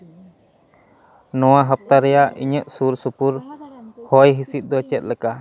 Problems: background conversations at intervals